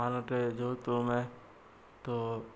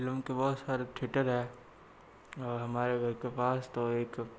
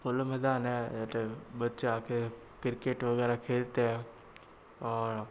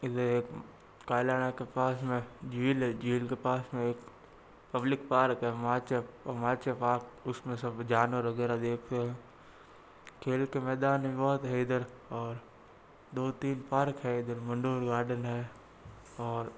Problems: constant background noise